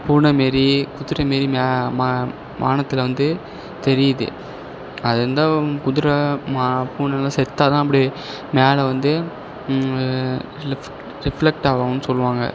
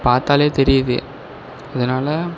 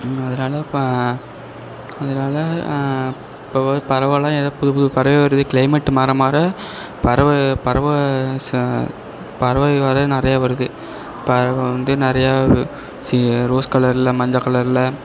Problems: none marked